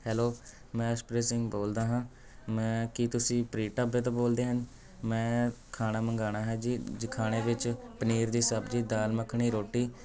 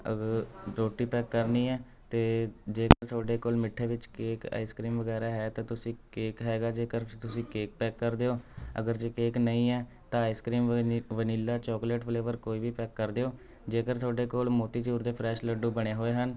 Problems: none marked